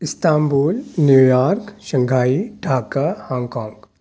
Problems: none marked